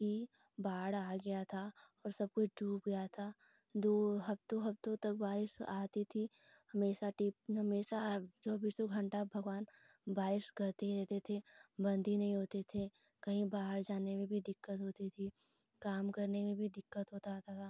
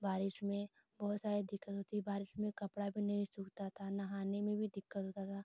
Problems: constant background noise